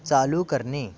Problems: background sounds at intervals, continuous background conversations